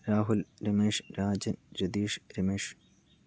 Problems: none marked